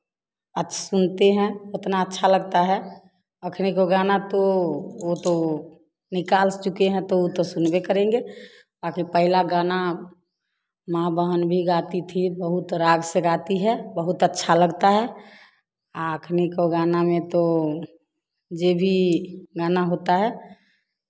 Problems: none marked